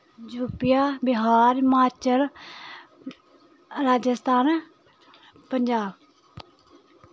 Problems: constant background noise, background conversations at intervals